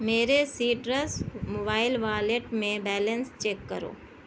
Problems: constant background noise